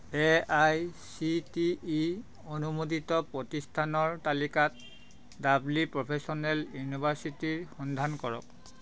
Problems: constant background noise